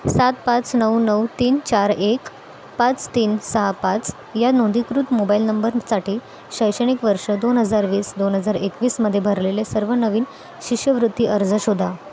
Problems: constant background noise, continuous background conversations